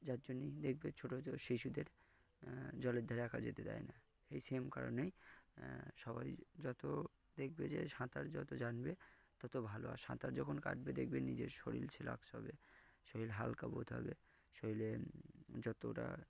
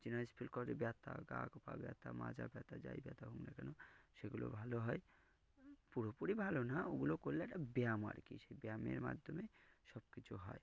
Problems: none marked